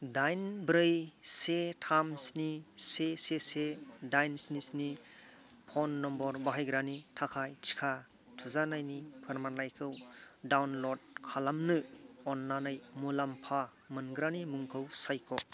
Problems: none marked